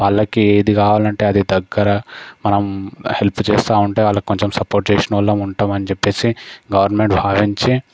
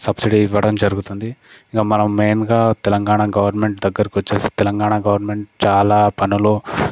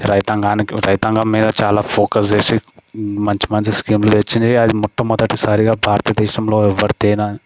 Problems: none marked